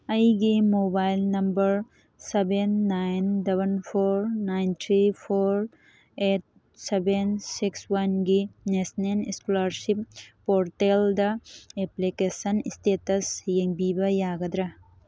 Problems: none marked